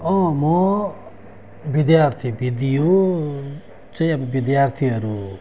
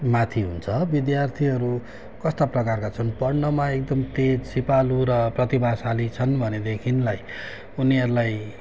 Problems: constant background noise